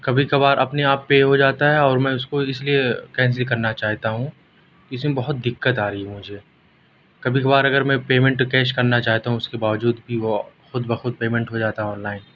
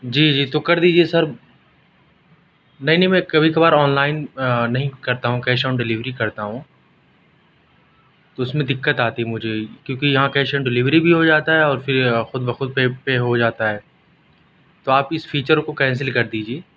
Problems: constant background noise, background conversations at intervals